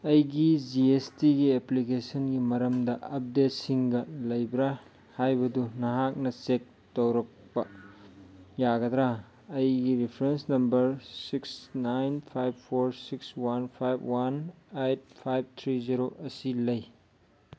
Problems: none marked